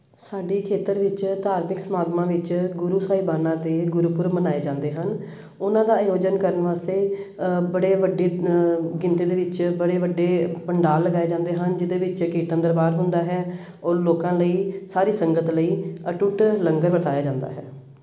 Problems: background sounds at intervals